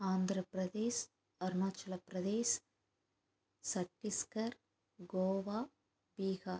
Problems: constant background noise